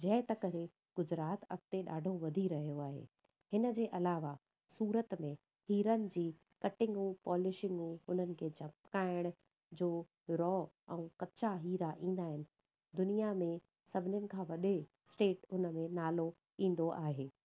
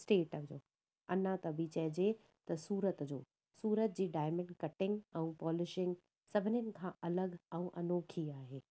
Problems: none marked